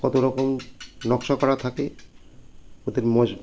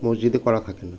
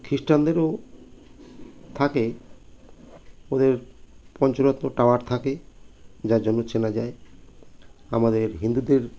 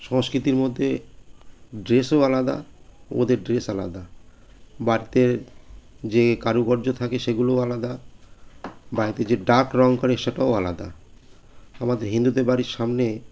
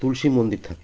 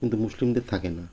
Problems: constant background noise